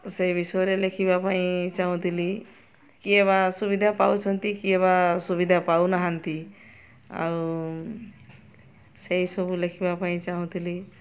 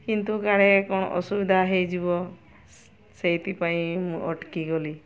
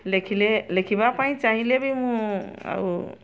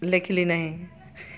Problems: constant background noise, continuous background conversations